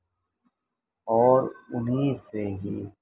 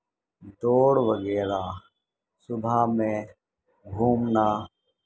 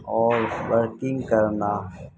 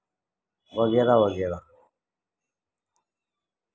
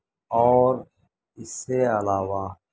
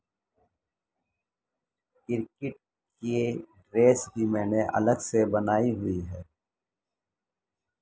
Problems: constant background noise